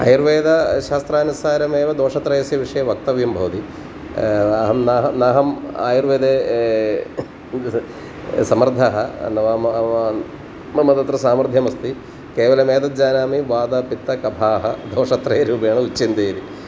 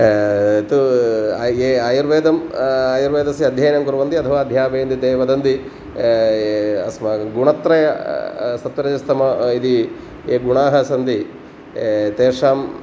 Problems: constant background noise